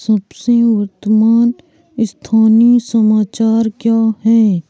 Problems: constant background noise, background conversations at intervals